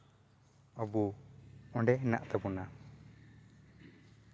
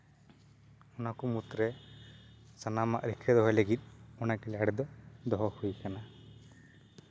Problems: none marked